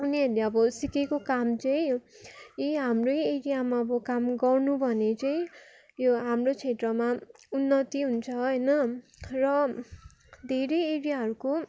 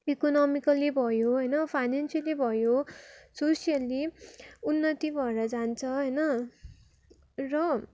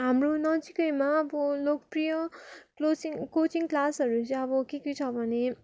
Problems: continuous background conversations